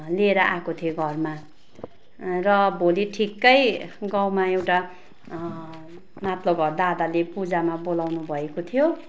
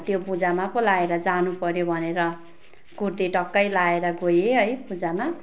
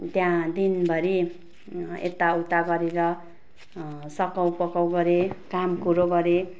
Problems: constant background noise